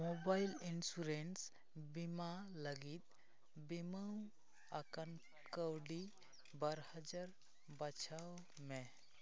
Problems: constant background noise, background conversations at intervals